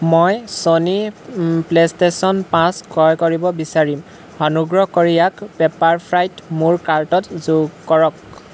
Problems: none marked